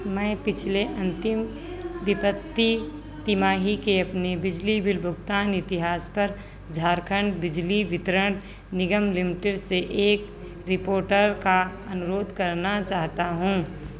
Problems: constant background noise